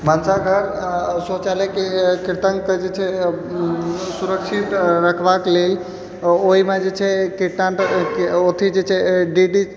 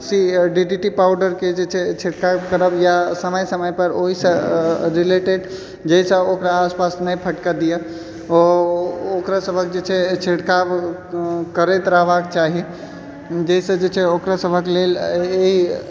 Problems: background sounds at intervals, background conversations at intervals